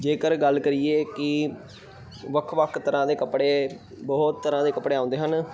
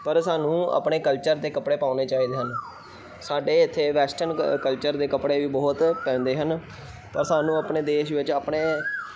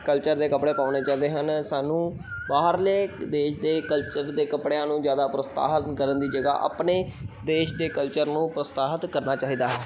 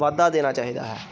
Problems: background sounds at intervals, background conversations at intervals